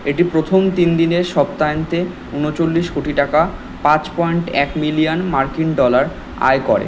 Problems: constant background noise